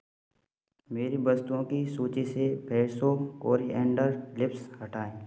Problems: constant background noise